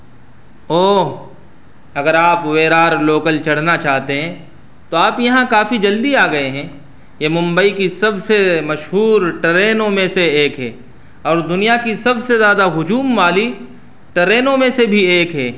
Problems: none marked